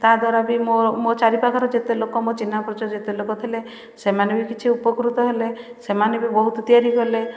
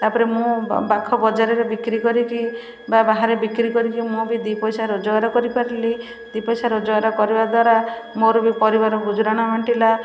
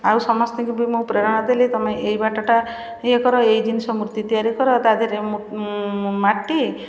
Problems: constant background noise, continuous background conversations